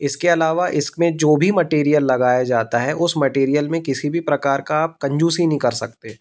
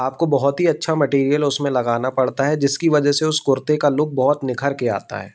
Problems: constant background noise